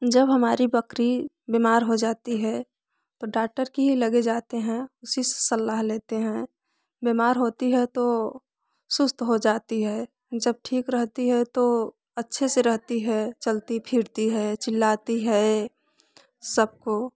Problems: background conversations at intervals